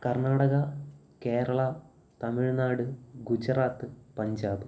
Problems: none marked